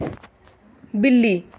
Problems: none marked